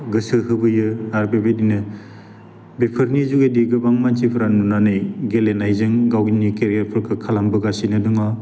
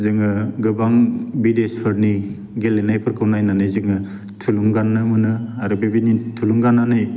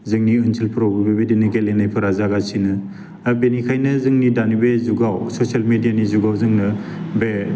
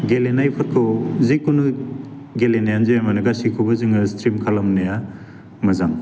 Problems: constant background noise